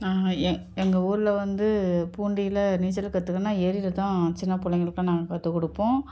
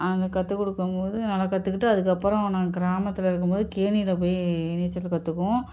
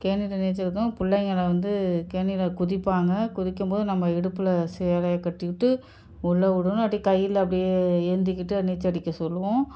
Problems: none marked